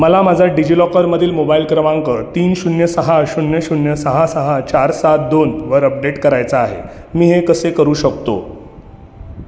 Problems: constant background noise, background conversations at intervals